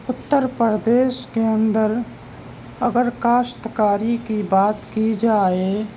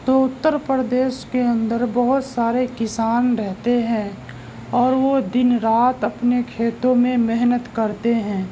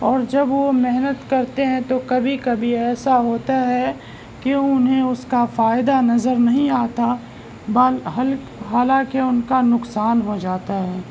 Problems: constant background noise